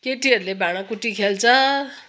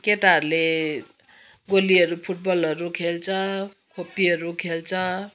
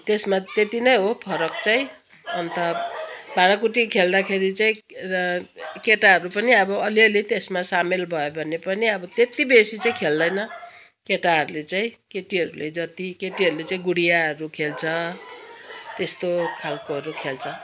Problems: background sounds at intervals